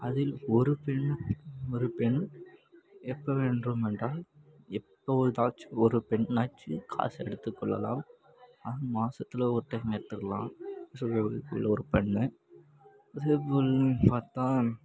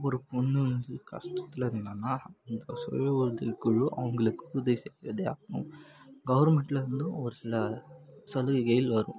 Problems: constant background noise